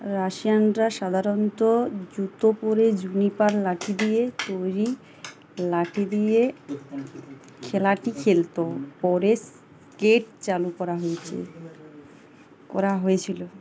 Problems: constant background noise